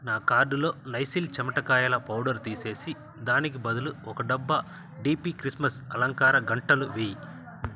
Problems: constant background noise, continuous background conversations